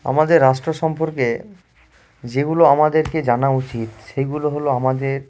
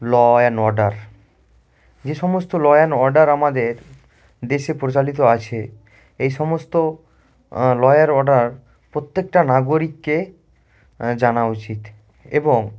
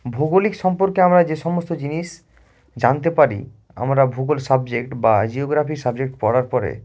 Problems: constant background noise